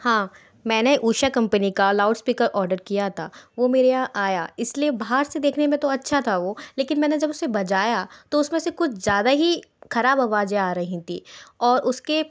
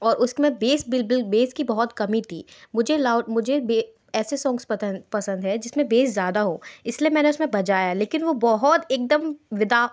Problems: background sounds at intervals